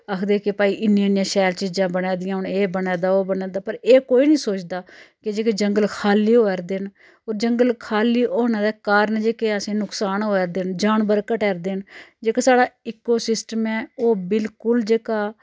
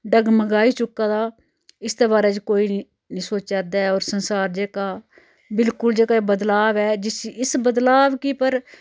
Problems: none marked